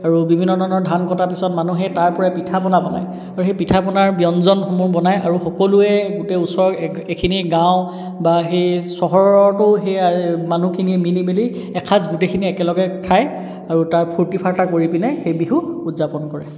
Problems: none marked